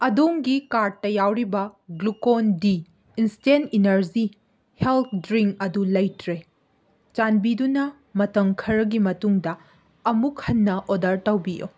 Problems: none marked